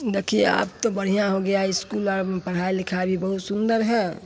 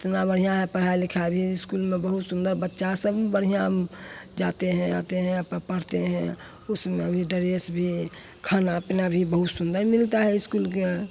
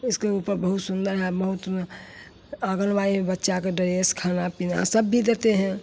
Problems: none marked